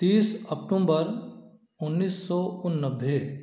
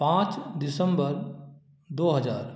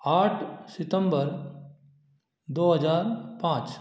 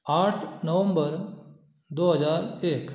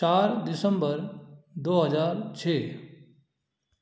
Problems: none marked